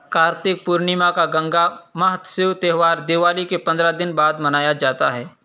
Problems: none marked